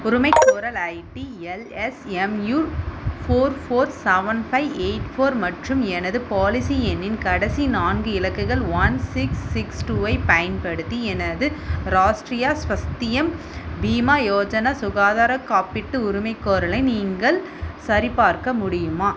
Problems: constant background noise